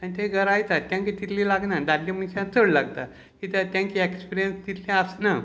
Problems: constant background noise